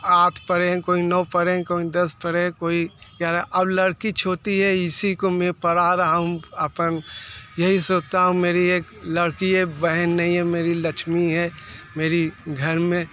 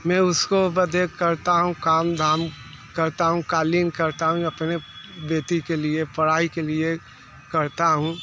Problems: constant background noise